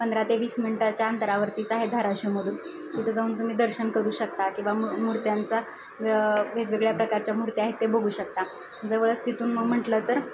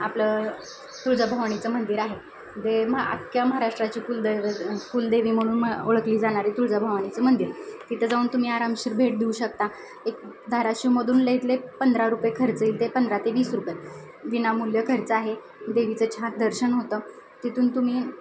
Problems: none marked